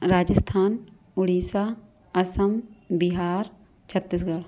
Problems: none marked